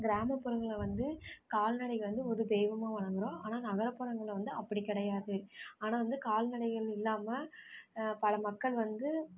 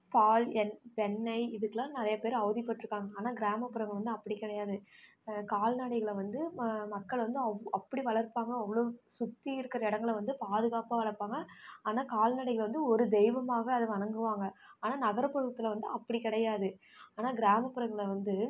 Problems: background conversations at intervals